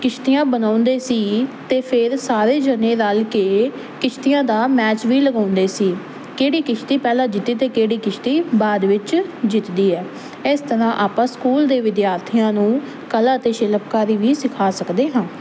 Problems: constant background noise